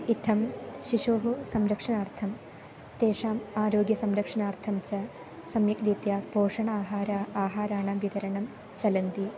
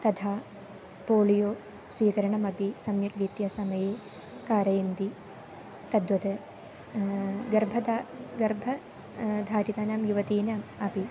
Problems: none marked